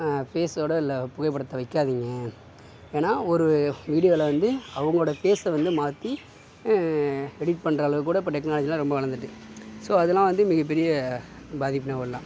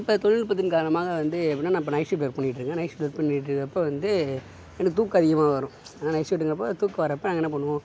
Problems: background sounds at intervals